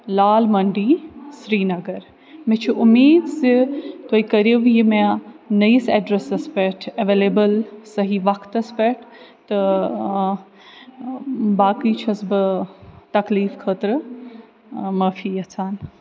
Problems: none marked